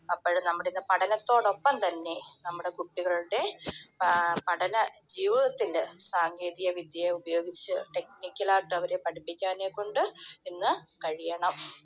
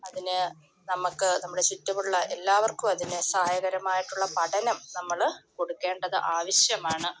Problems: none marked